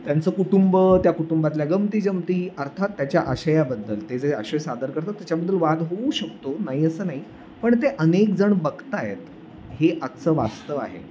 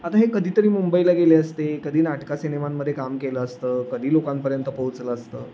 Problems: none marked